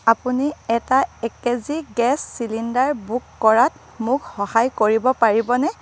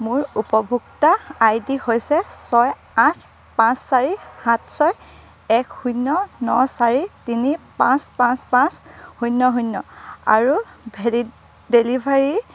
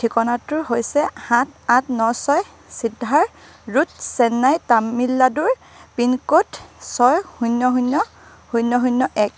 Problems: none marked